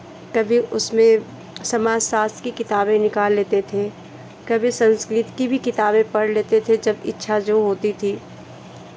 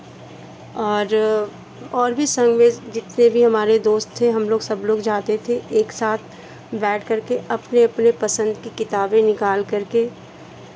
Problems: none marked